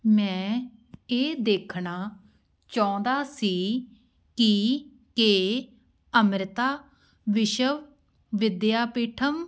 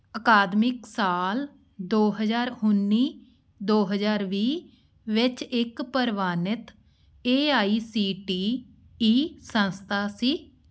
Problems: background sounds at intervals